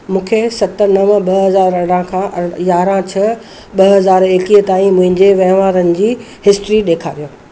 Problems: constant background noise